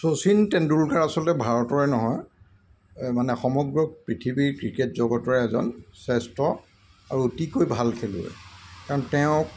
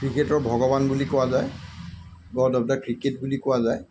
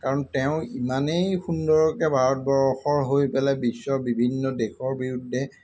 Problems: none marked